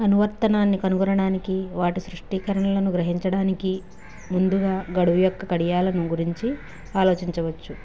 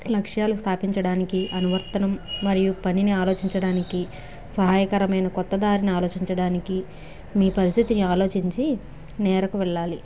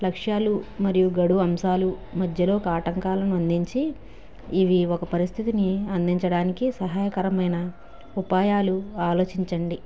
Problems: background sounds at intervals